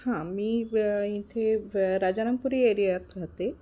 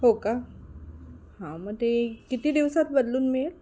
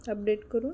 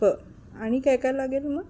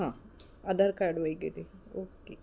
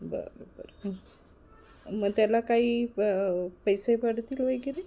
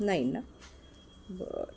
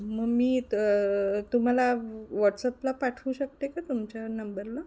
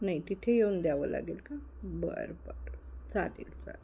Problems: none marked